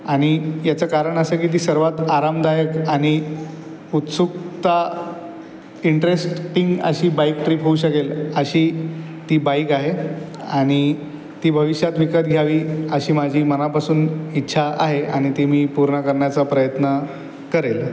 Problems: constant background noise, background conversations at intervals